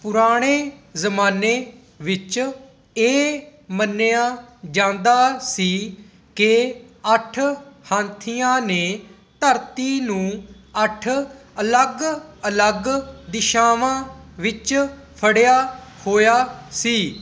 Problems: none marked